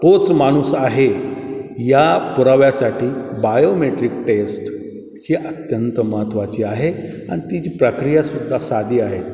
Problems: none marked